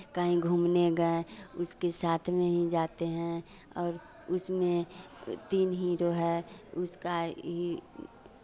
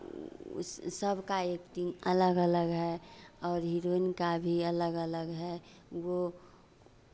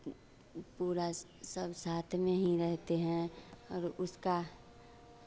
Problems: none marked